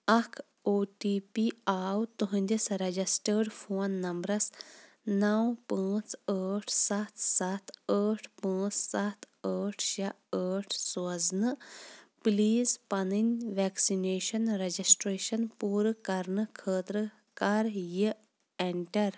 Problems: none marked